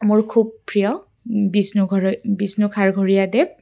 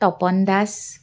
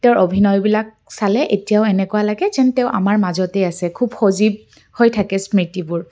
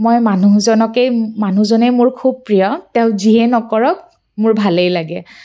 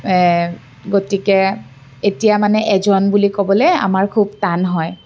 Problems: none marked